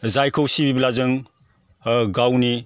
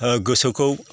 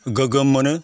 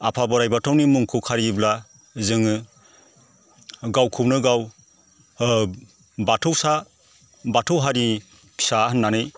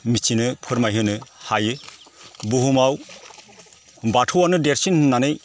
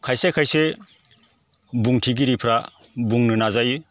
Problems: constant background noise